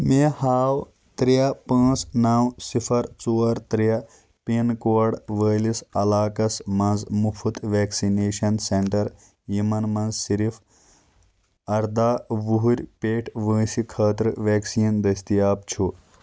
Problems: constant background noise